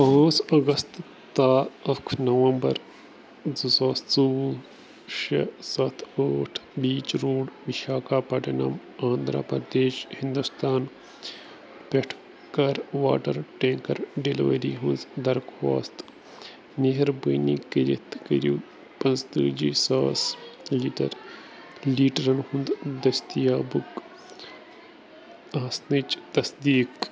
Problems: none marked